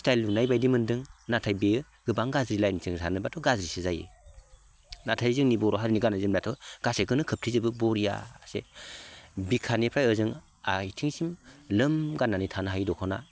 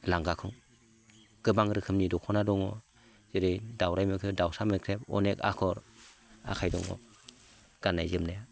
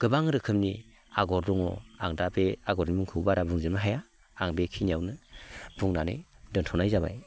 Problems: none marked